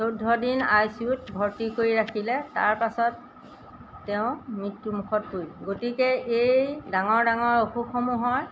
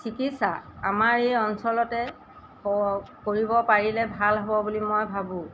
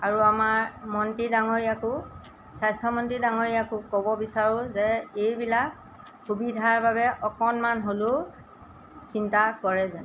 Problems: background sounds at intervals